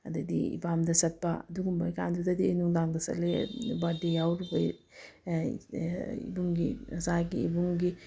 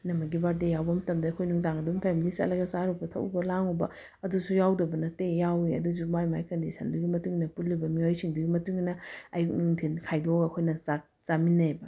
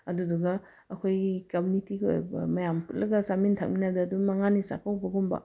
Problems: none marked